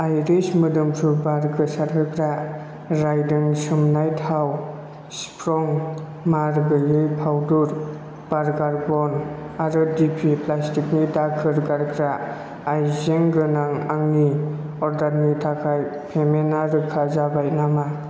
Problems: none marked